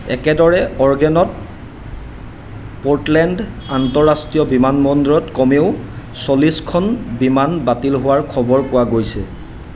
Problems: constant background noise